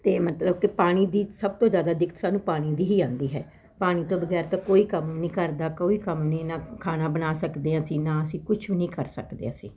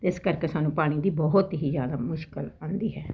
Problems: constant background noise